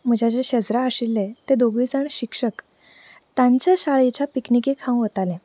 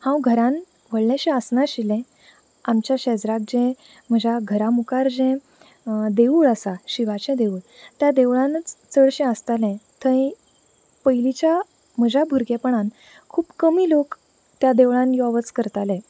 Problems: none marked